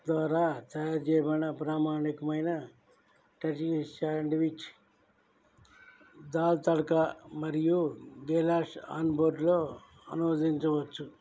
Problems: low volume